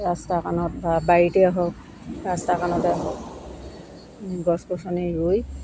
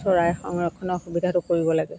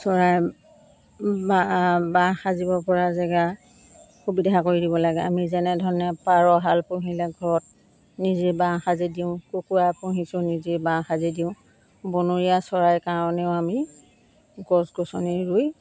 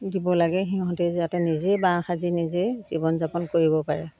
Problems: constant background noise